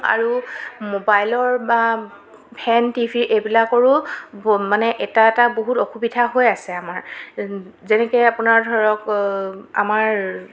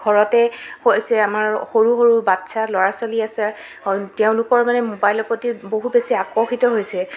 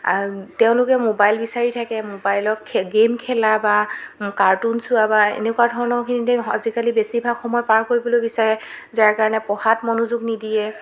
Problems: constant background noise, background conversations at intervals